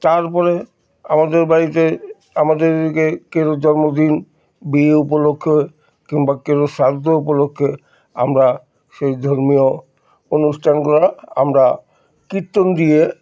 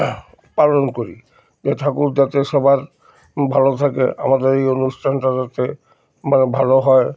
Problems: constant background noise